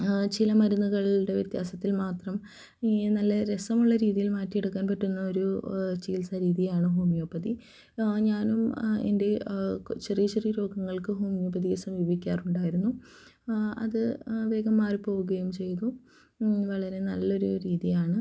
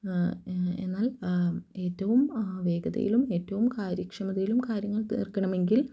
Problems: low volume